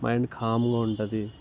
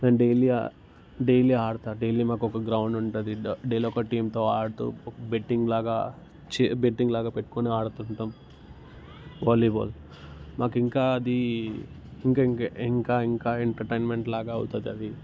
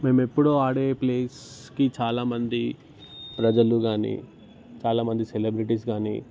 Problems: none marked